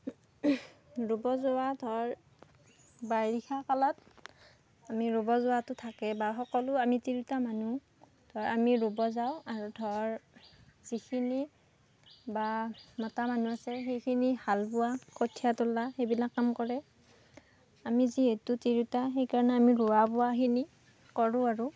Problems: background sounds at intervals